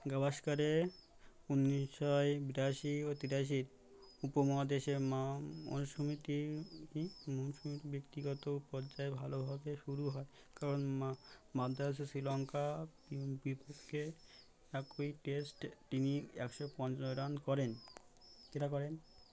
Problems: none marked